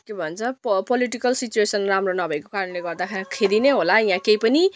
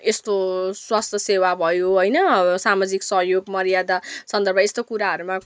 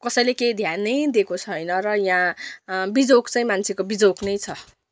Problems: none marked